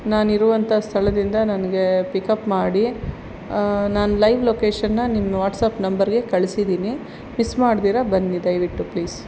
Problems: constant background noise